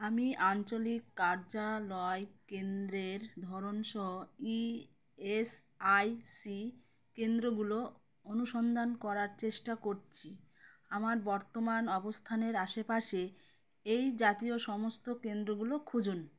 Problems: none marked